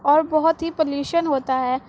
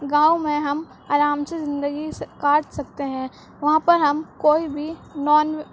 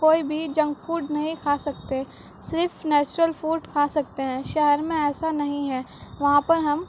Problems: constant background noise